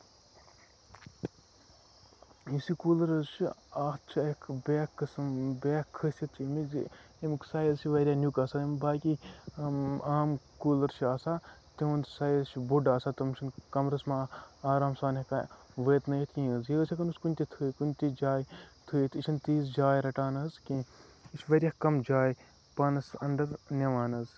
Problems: background sounds at intervals